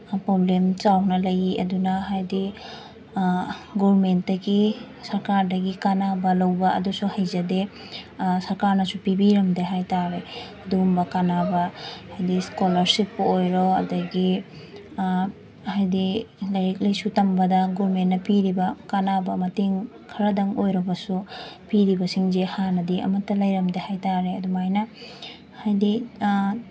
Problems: constant background noise